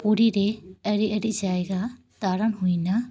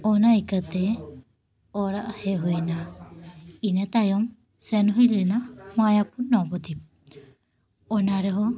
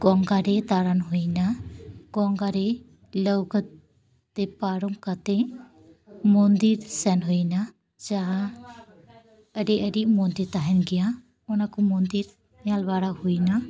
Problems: background conversations at intervals